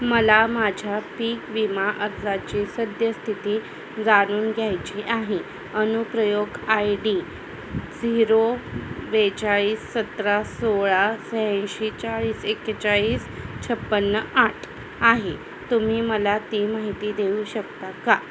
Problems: constant background noise, background conversations at intervals